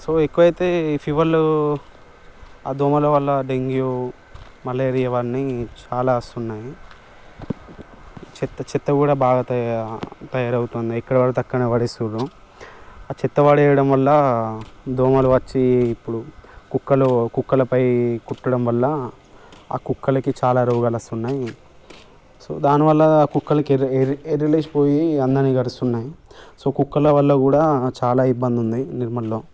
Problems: background sounds at intervals